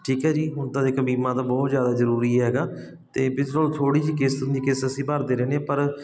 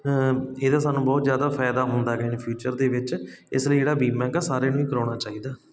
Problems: constant background noise